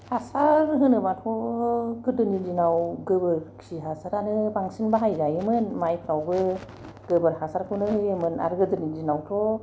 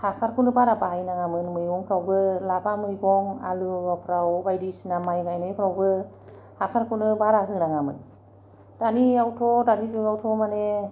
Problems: none marked